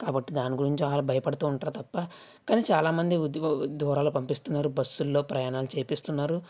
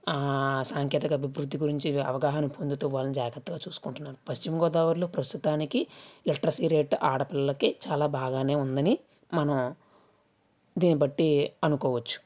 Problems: none marked